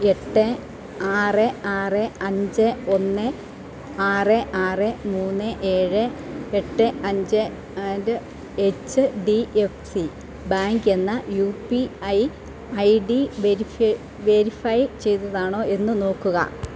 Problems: none marked